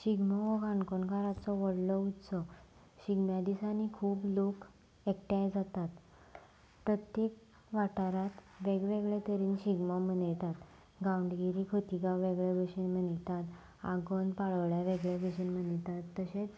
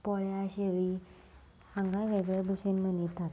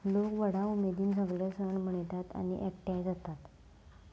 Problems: background sounds at intervals